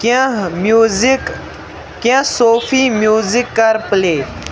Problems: constant background noise, background conversations at intervals